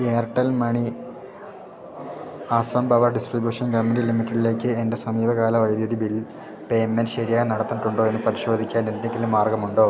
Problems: background sounds at intervals, low volume